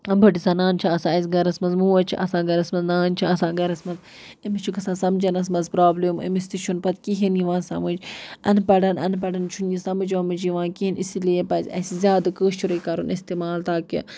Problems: none marked